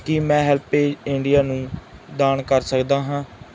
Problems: none marked